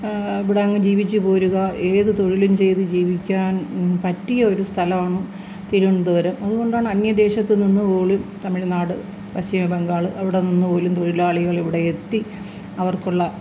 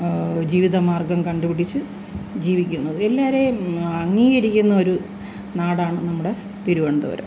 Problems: constant background noise